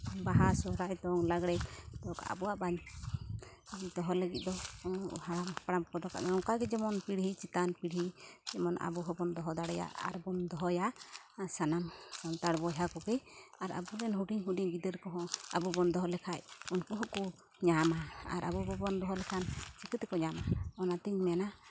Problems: none marked